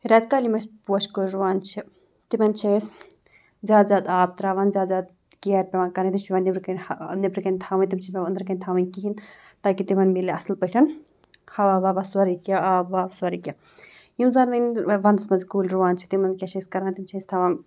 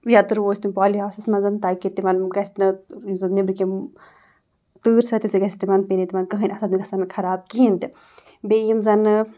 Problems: none marked